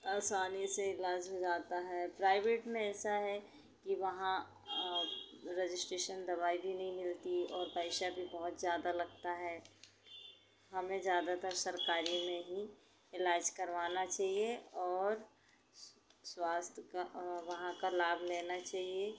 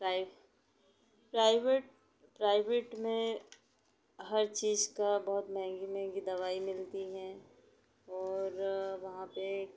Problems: constant background noise